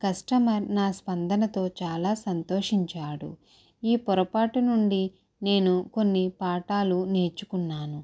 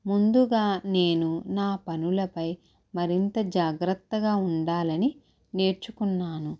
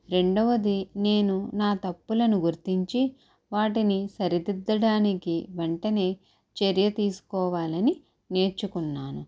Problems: low volume